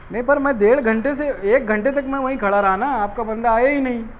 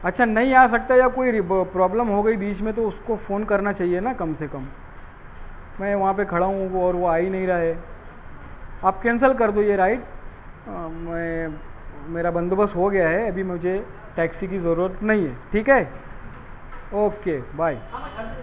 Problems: constant background noise, background conversations at intervals